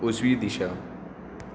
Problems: none marked